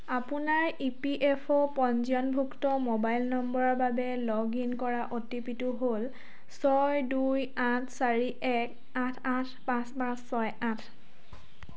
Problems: constant background noise